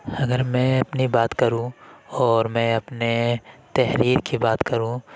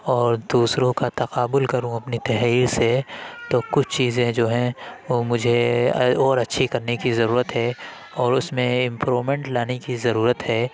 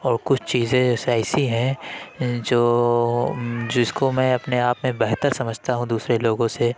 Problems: constant background noise